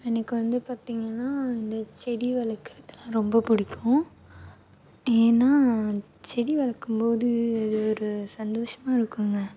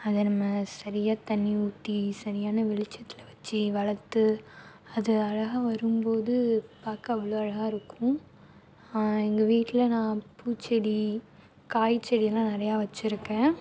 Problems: none marked